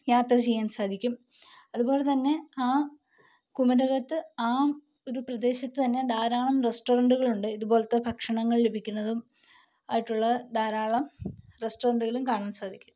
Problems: low volume